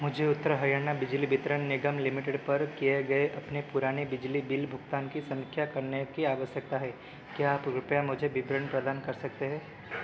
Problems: none marked